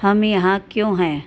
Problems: constant background noise